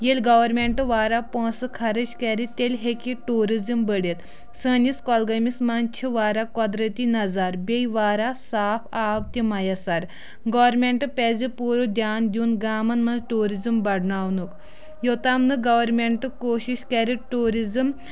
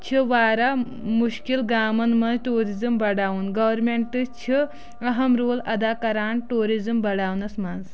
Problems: continuous background conversations